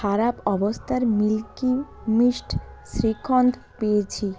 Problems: none marked